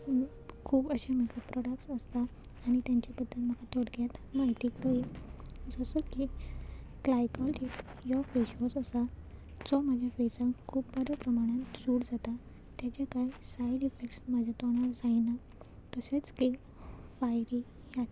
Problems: none marked